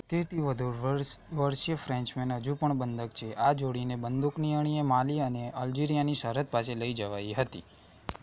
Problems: constant background noise, low volume